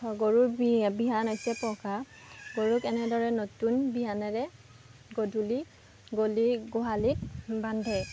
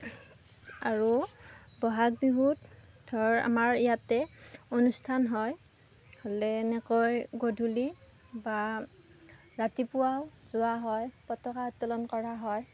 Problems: background sounds at intervals, background conversations at intervals